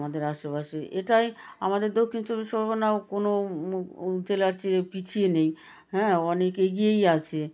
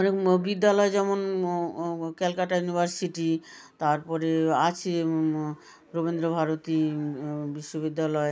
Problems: background conversations at intervals